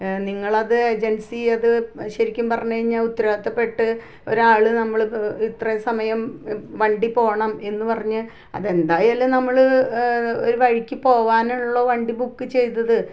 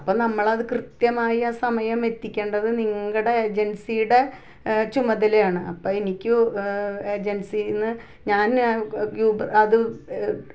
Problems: none marked